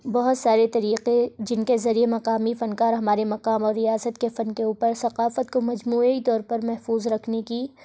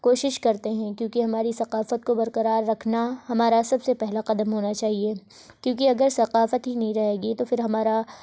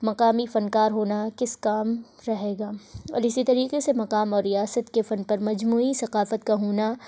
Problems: constant background noise